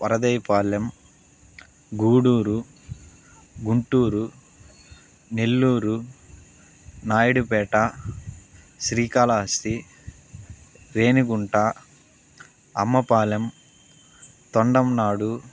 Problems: constant background noise